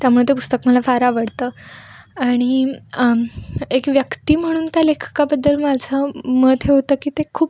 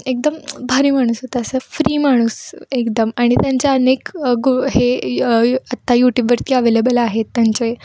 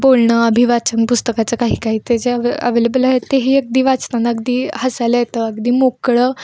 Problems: background sounds at intervals